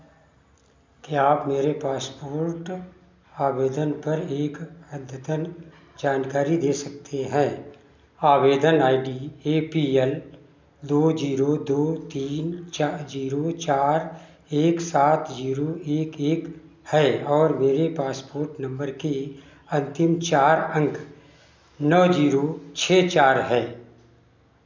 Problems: background sounds at intervals, echo